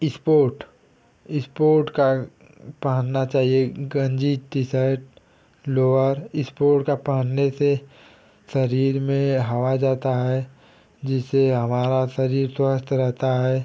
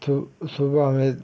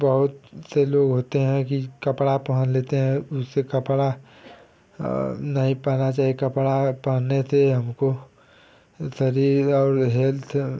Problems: constant background noise